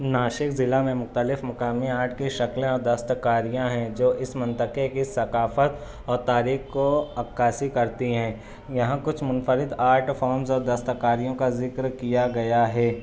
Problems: constant background noise